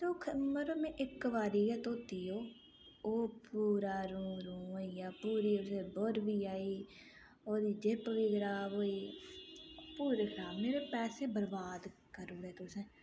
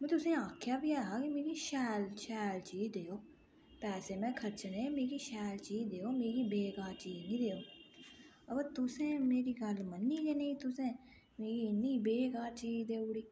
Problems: low volume